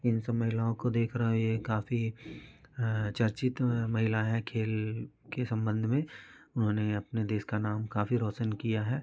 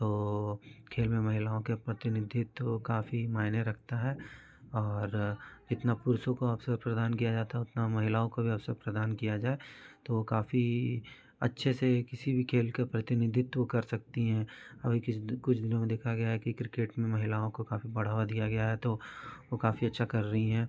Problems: continuous background conversations